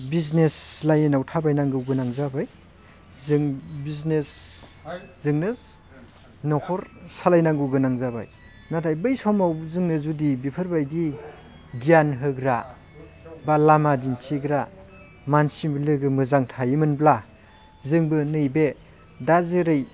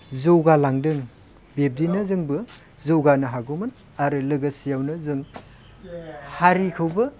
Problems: constant background noise